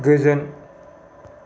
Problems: none marked